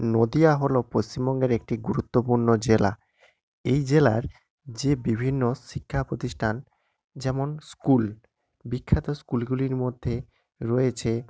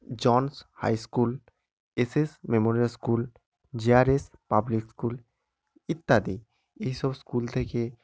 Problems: none marked